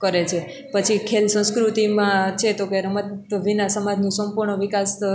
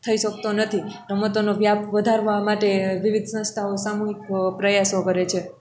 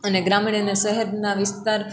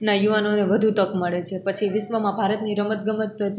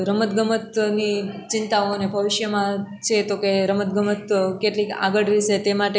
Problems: constant background noise